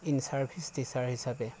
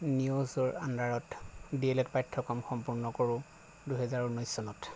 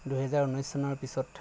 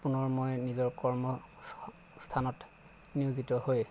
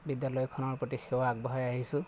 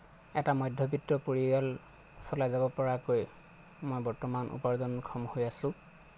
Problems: none marked